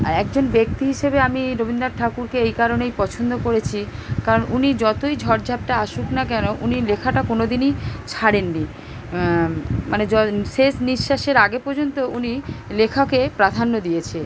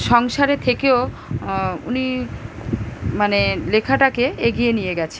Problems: none marked